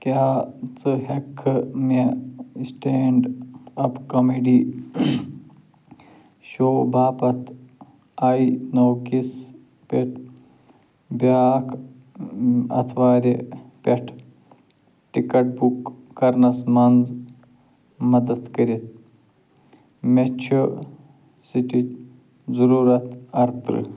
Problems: low volume